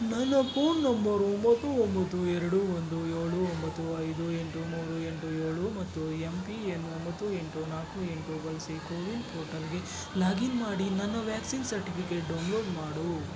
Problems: constant background noise